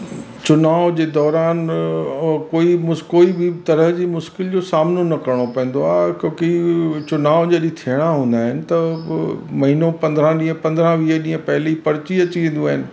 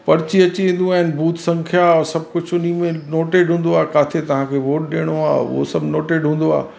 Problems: constant background noise, echo